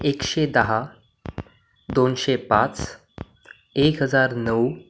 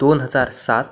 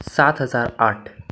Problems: background sounds at intervals